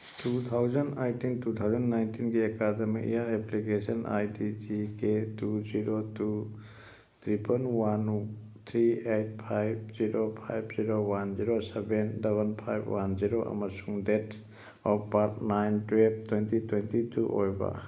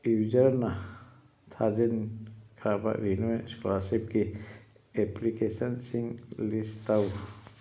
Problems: background sounds at intervals